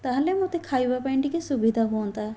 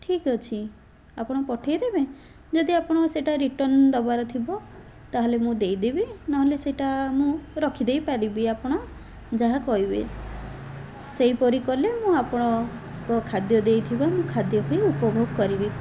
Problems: background sounds at intervals